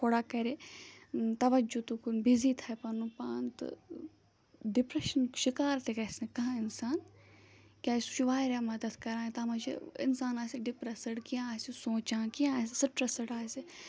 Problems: background sounds at intervals